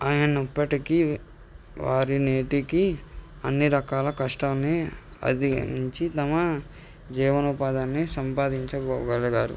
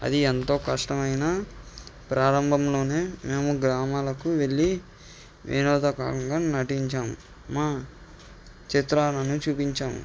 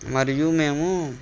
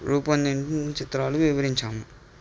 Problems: background sounds at intervals